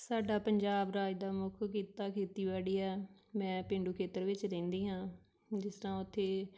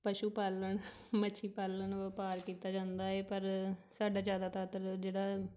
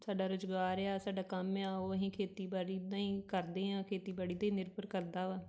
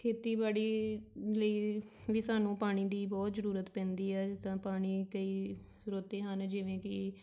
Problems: none marked